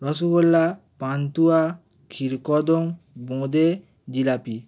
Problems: constant background noise